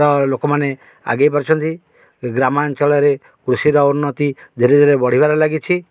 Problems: none marked